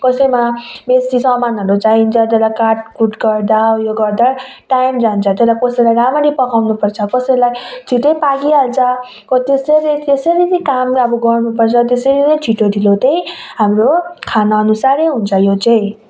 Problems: background sounds at intervals